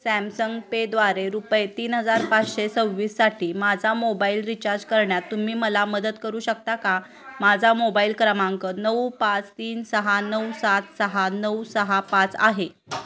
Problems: constant background noise, continuous background conversations